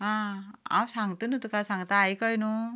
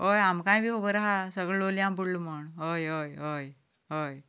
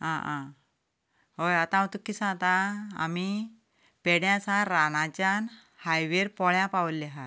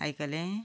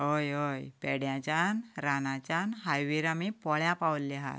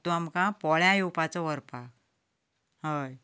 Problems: none marked